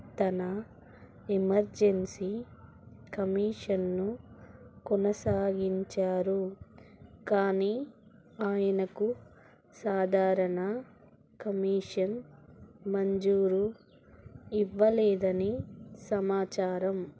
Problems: low volume